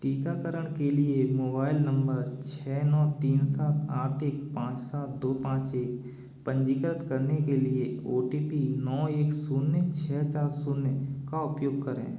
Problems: echo